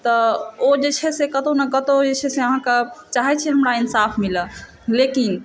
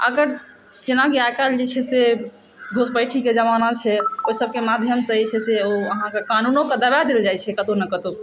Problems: constant background noise